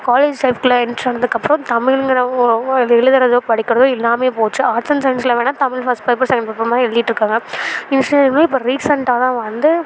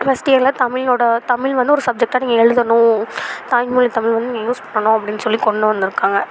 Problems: background sounds at intervals